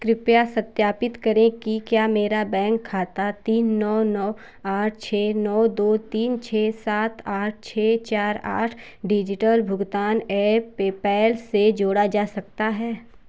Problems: constant background noise